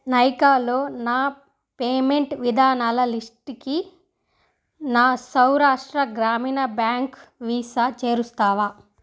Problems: none marked